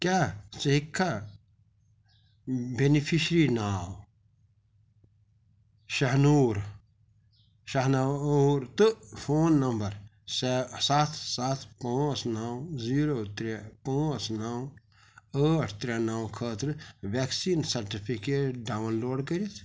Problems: none marked